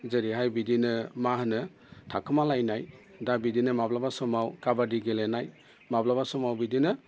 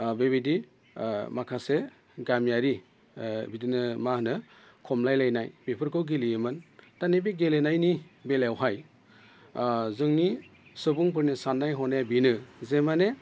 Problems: none marked